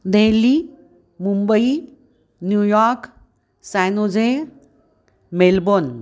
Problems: none marked